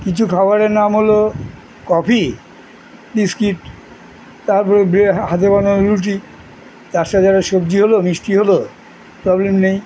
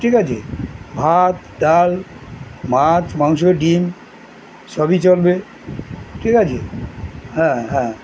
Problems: constant background noise